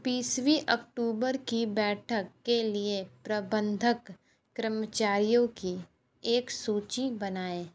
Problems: none marked